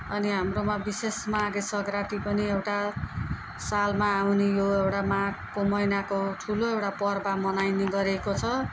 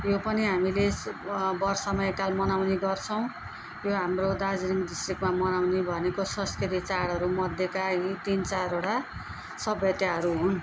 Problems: background conversations at intervals